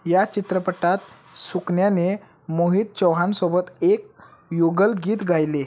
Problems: none marked